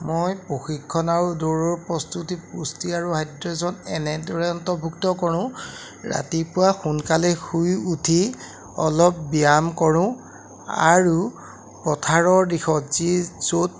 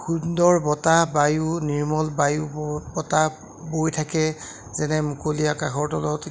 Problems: none marked